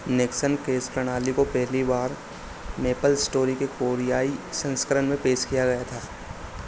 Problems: constant background noise